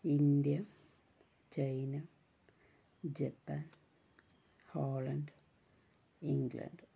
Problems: low volume